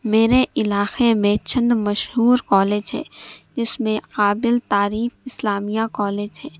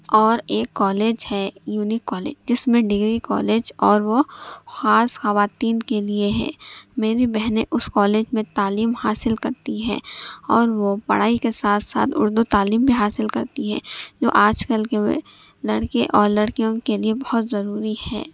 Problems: none marked